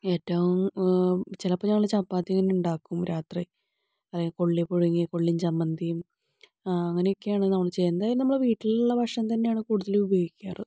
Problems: none marked